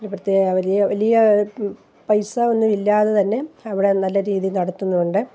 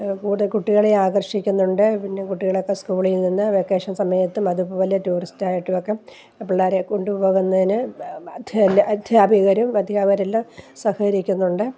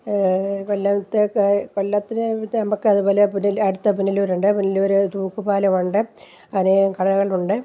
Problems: low volume